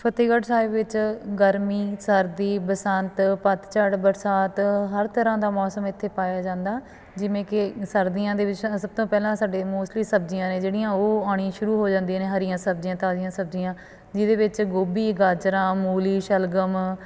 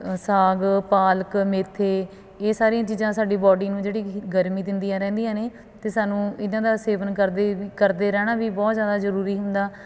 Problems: background sounds at intervals, background conversations at intervals